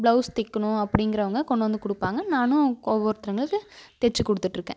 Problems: constant background noise